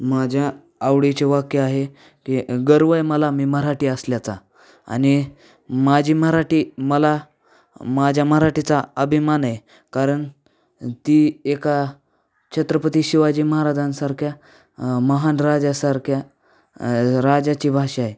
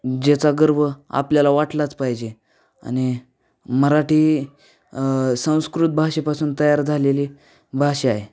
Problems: none marked